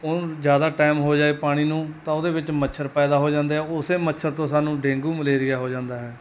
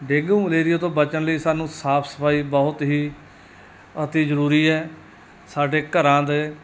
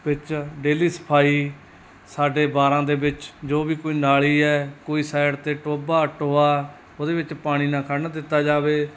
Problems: none marked